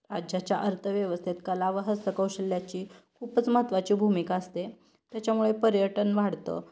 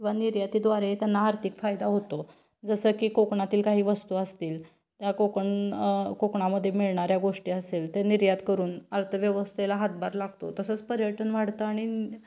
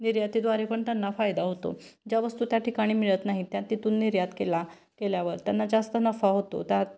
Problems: constant background noise